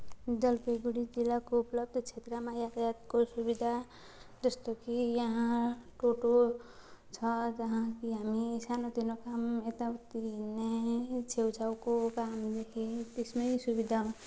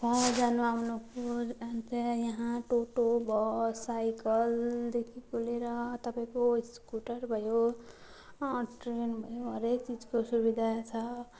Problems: constant background noise